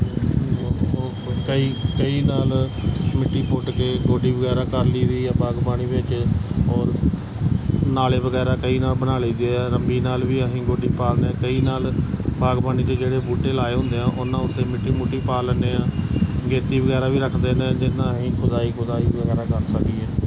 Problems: constant background noise